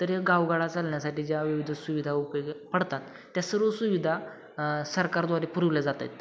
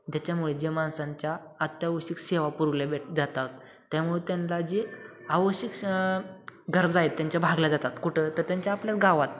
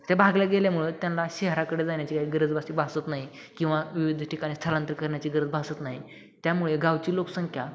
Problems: none marked